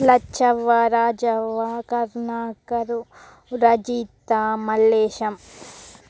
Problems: none marked